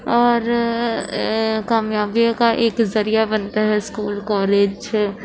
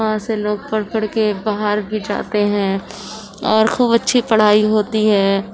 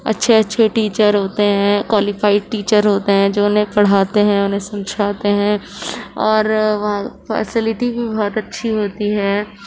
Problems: none marked